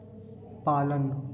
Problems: constant background noise, echo